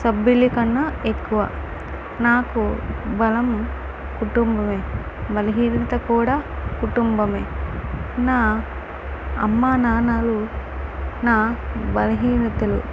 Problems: constant background noise